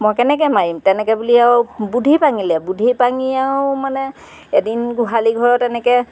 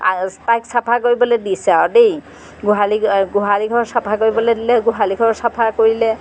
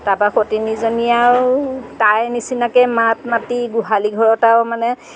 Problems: background sounds at intervals